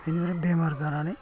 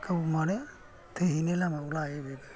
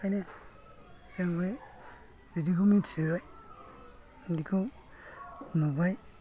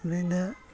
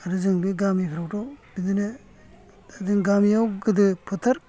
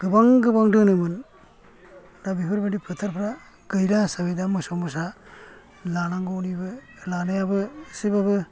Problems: low volume